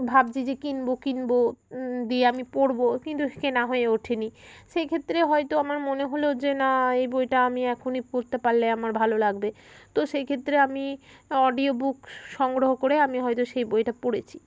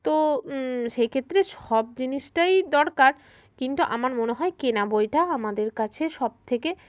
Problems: constant background noise, continuous background conversations